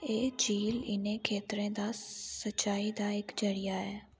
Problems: background sounds at intervals